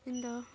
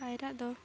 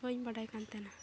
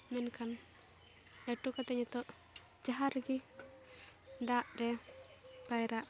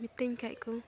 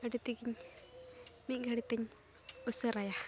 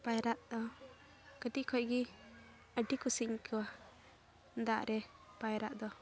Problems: background sounds at intervals